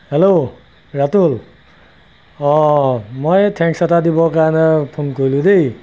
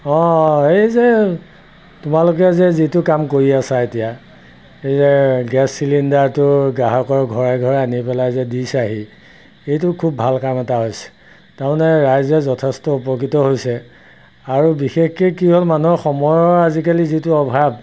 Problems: constant background noise